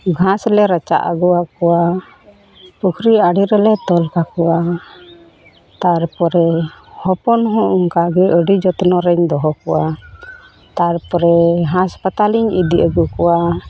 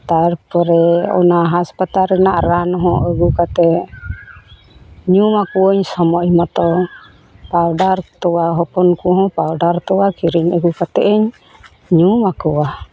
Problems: background sounds at intervals